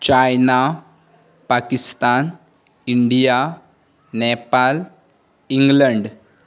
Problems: none marked